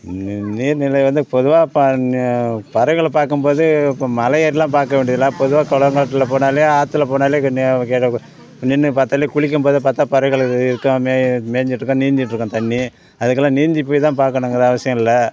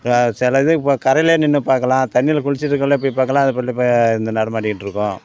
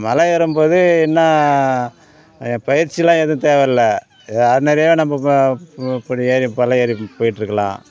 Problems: background sounds at intervals, background conversations at intervals